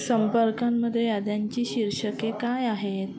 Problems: constant background noise, continuous background conversations